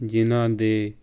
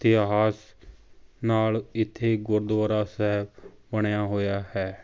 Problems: background sounds at intervals